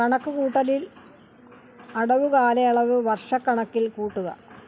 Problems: low volume